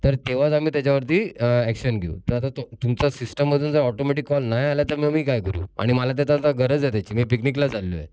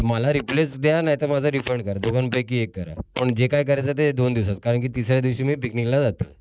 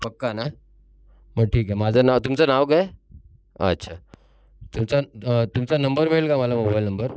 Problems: constant background noise